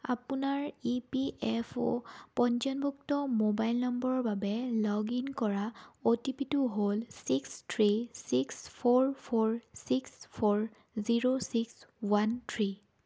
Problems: none marked